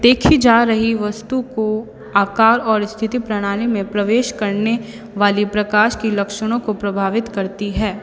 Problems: constant background noise, echo